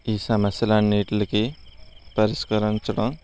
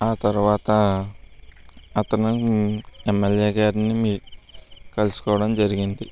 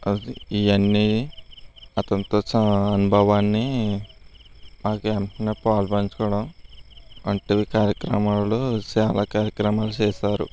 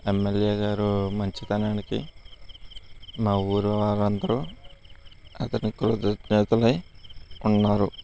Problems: constant background noise